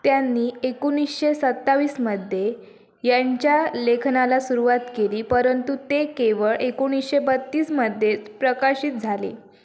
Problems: background sounds at intervals